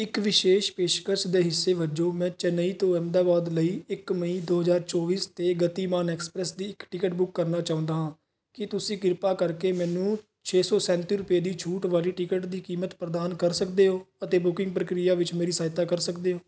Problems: none marked